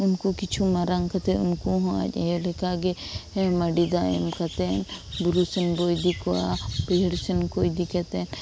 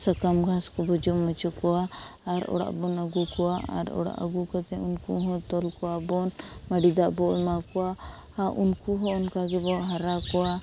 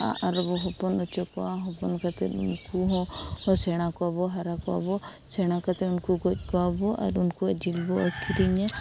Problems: constant background noise